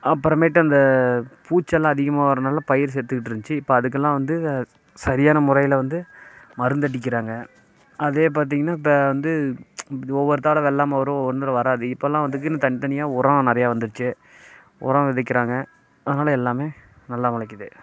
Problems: constant background noise